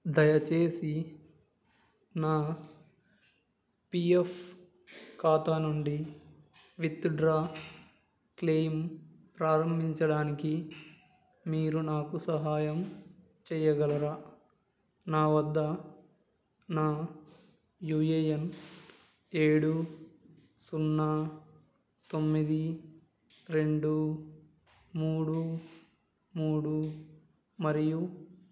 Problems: none marked